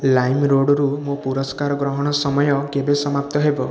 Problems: constant background noise, echo